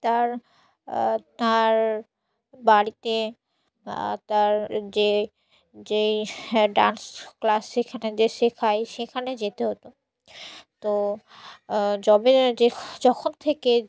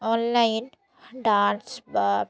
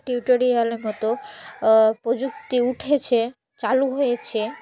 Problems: constant background noise